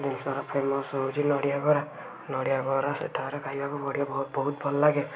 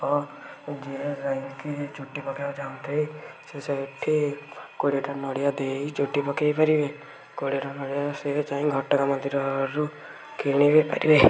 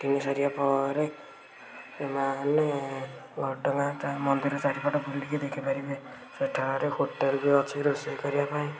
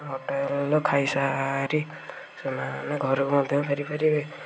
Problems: constant background noise